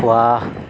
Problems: constant background noise